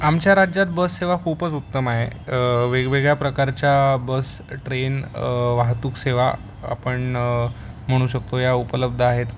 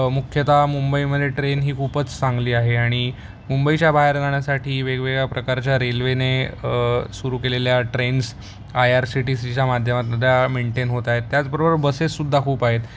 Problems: none marked